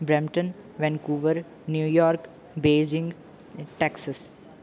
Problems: background sounds at intervals